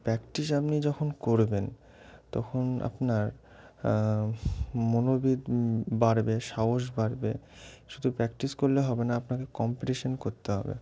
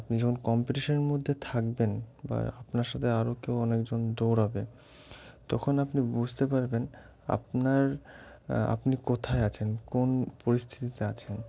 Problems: constant background noise